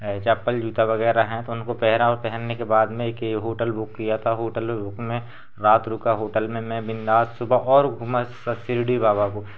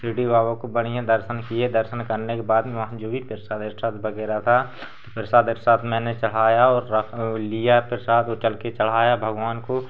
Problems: constant background noise